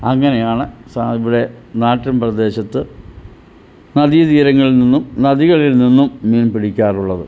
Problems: none marked